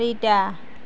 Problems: none marked